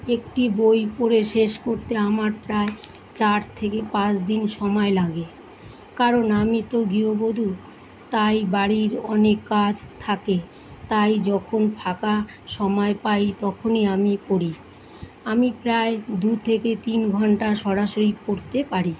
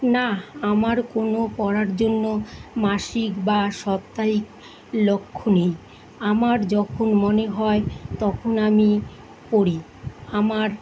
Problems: constant background noise